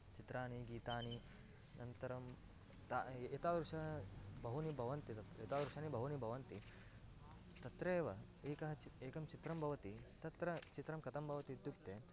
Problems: low volume